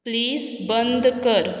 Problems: constant background noise